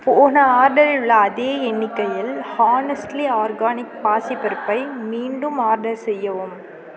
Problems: continuous background conversations